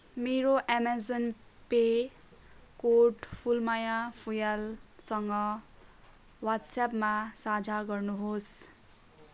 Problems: constant background noise